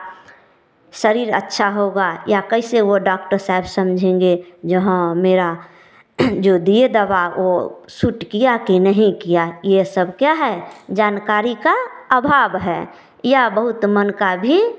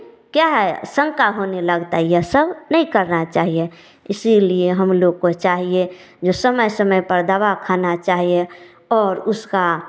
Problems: background sounds at intervals